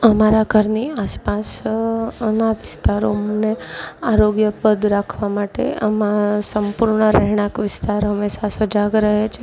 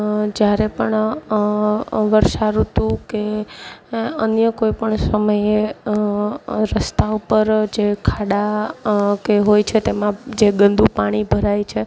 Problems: none marked